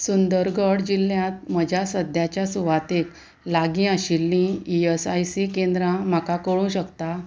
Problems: none marked